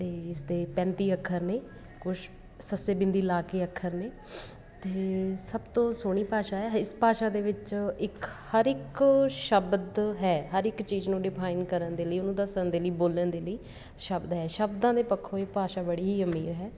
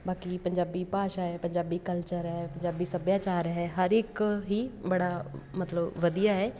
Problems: constant background noise